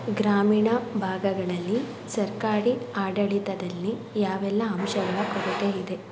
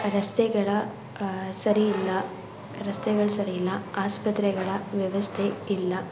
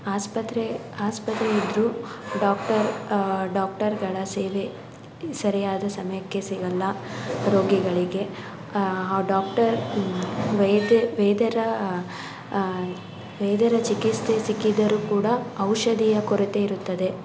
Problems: background sounds at intervals